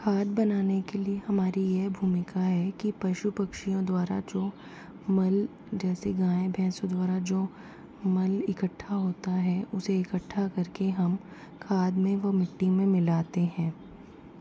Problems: constant background noise, low volume